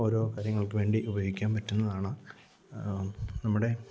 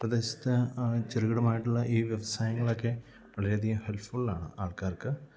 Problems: low volume